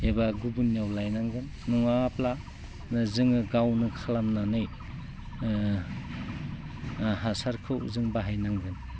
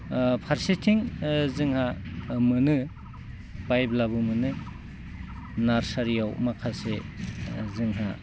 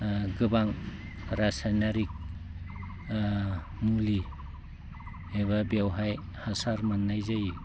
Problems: low volume